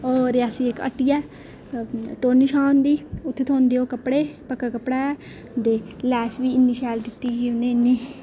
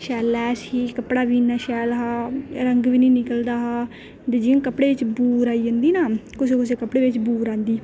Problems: none marked